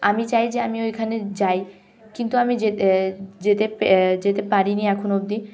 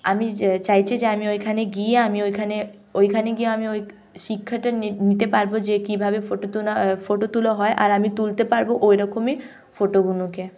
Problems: background sounds at intervals, background conversations at intervals